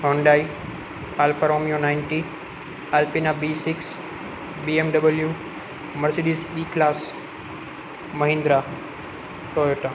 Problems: constant background noise